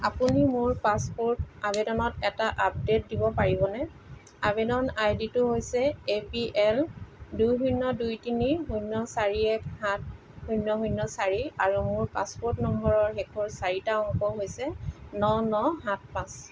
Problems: constant background noise